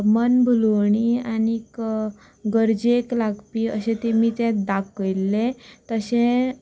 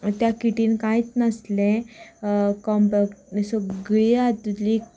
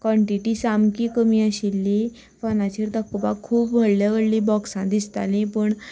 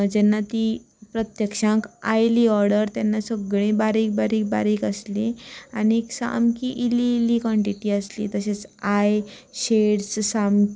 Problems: constant background noise, background conversations at intervals